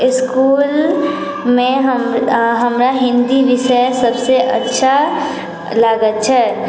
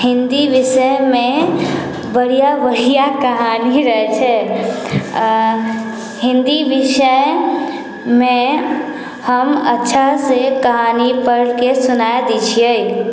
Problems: background conversations at intervals